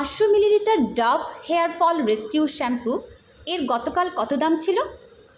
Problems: constant background noise